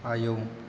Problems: constant background noise